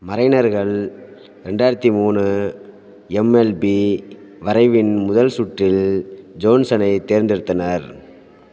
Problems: background sounds at intervals